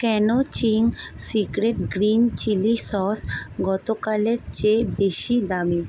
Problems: none marked